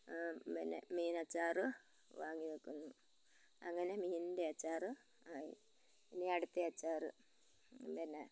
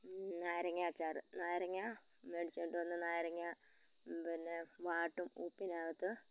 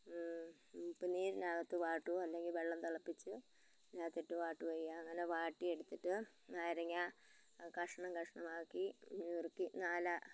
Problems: background conversations at intervals, low volume